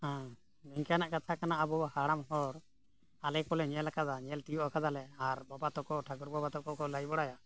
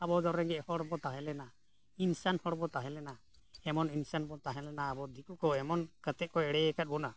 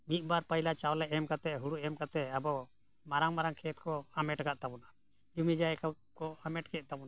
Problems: none marked